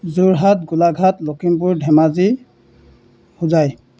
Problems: none marked